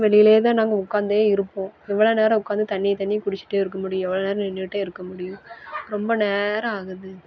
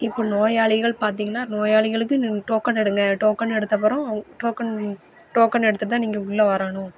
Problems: background conversations at intervals